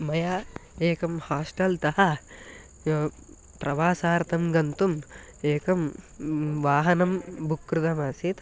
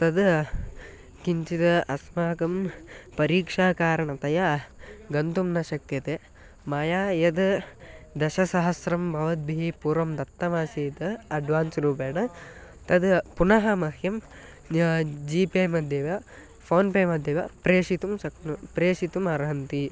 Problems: none marked